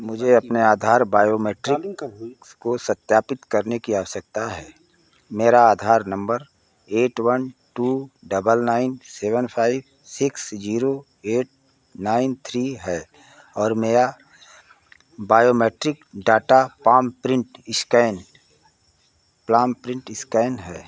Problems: background sounds at intervals